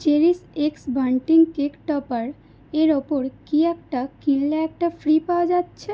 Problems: constant background noise